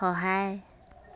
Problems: background conversations at intervals